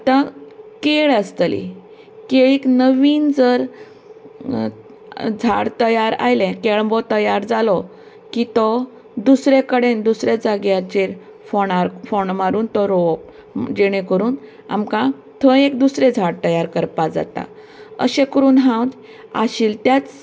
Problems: none marked